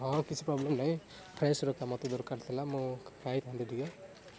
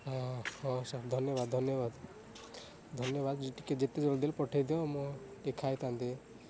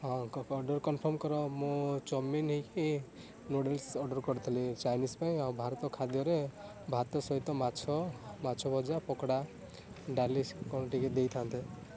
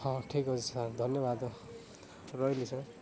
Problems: none marked